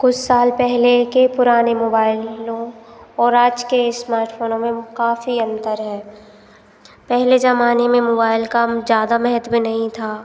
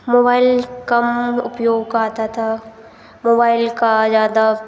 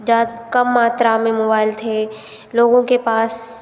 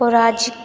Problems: none marked